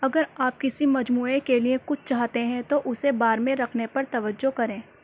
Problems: none marked